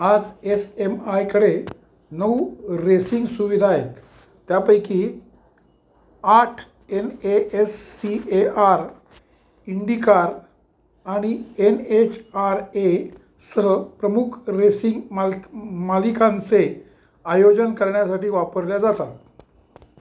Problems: none marked